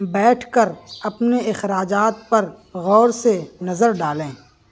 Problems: background sounds at intervals, background conversations at intervals